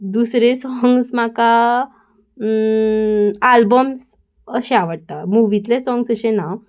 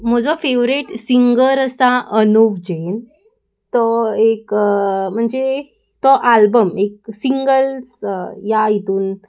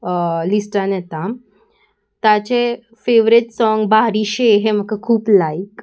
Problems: constant background noise